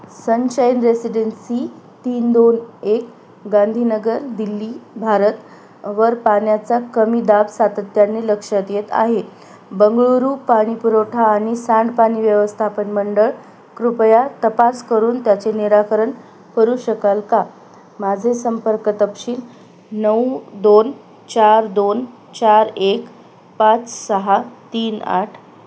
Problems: none marked